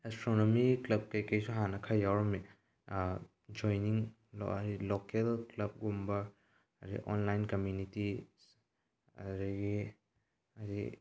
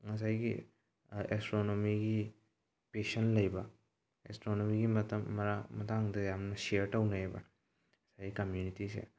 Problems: low volume